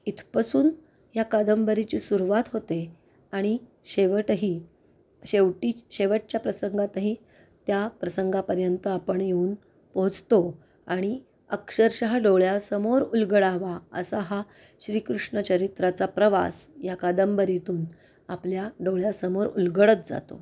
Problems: none marked